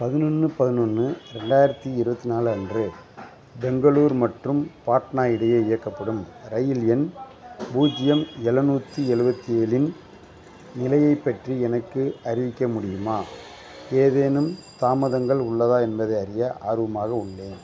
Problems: constant background noise, background conversations at intervals